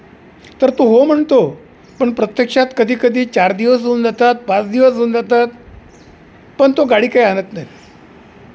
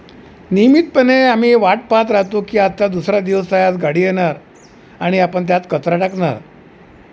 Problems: none marked